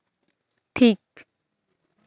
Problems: none marked